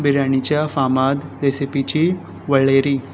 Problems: constant background noise